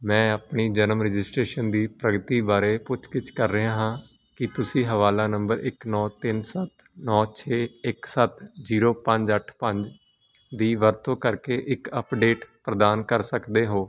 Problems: constant background noise